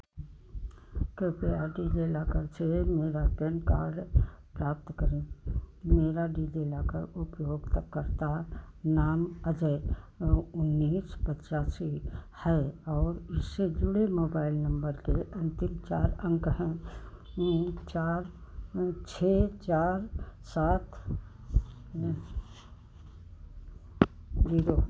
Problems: constant background noise